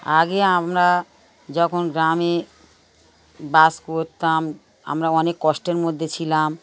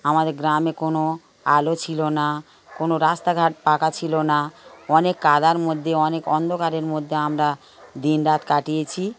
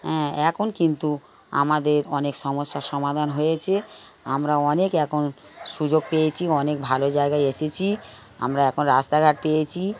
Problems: background sounds at intervals